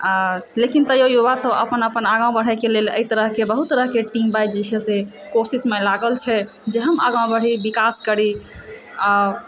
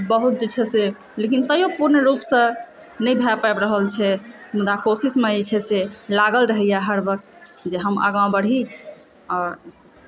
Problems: background sounds at intervals, background conversations at intervals